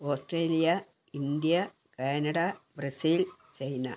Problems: constant background noise, low volume